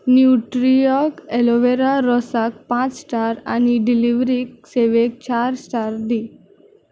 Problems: none marked